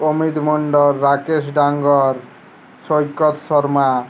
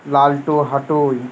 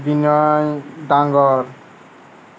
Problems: constant background noise